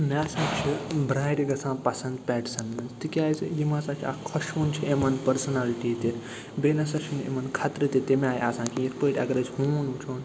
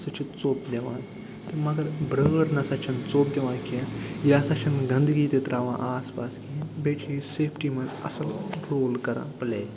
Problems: constant background noise